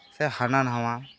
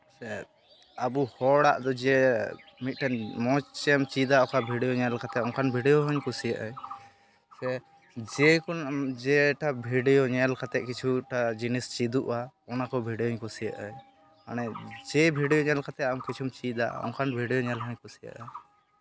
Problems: none marked